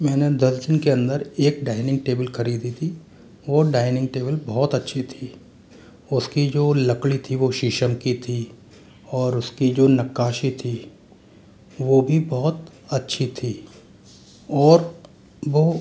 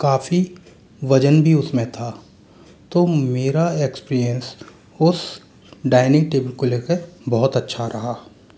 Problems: constant background noise